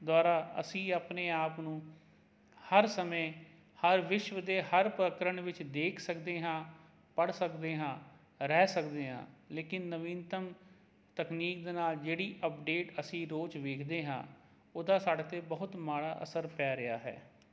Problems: none marked